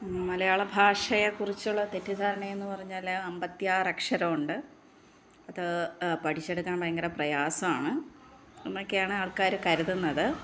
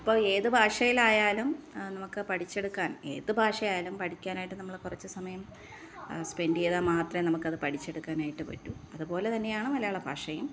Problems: background sounds at intervals